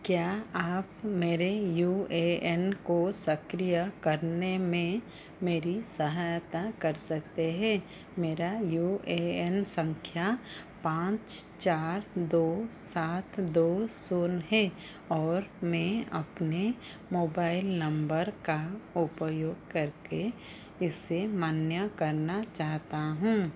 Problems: none marked